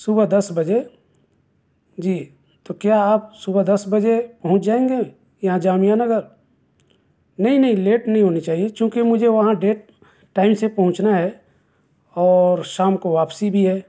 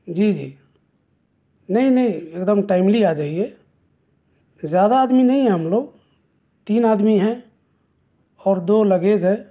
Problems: none marked